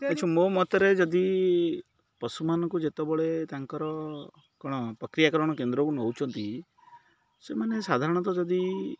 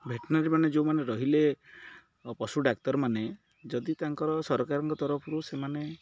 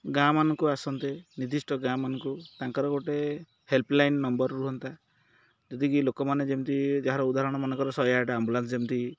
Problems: none marked